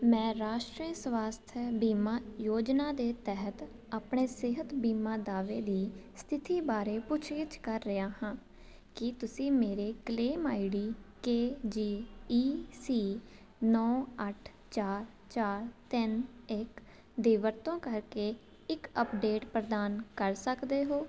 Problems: constant background noise